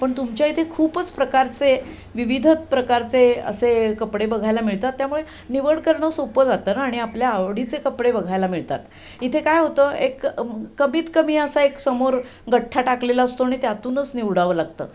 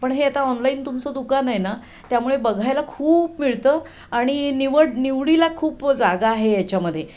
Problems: background sounds at intervals